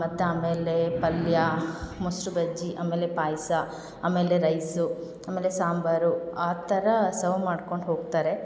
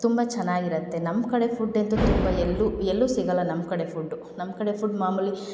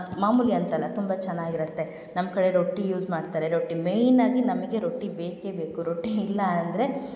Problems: none marked